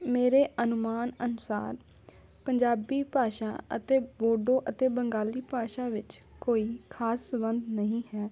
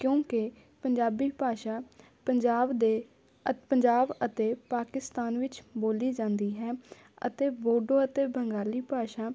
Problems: background conversations at intervals